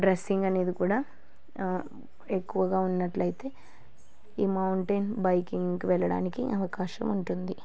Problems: low volume